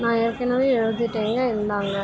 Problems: constant background noise, continuous background conversations